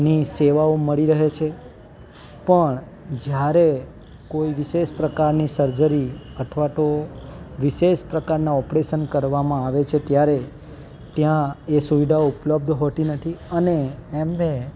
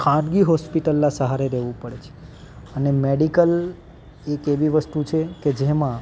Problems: background sounds at intervals, background conversations at intervals